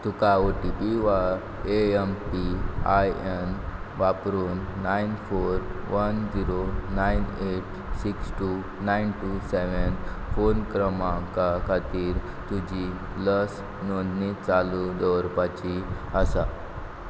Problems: background sounds at intervals